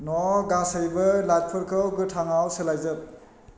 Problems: constant background noise